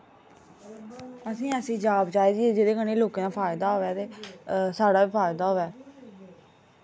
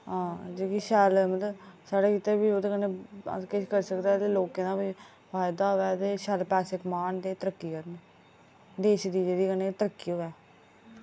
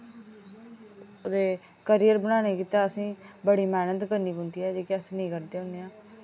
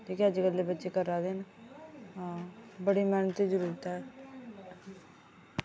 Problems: none marked